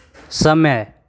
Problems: constant background noise